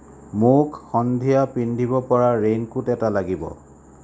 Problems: none marked